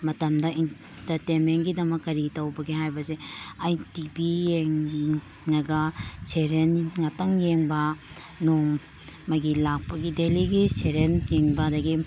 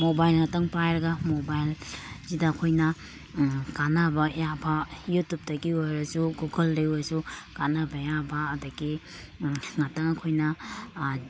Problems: none marked